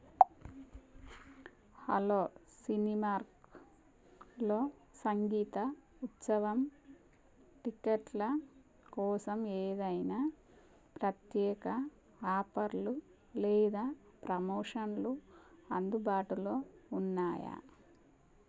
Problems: none marked